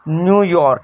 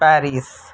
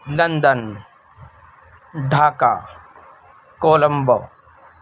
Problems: constant background noise